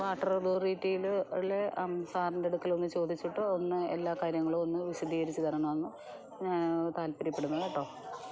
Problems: background sounds at intervals, background conversations at intervals, low volume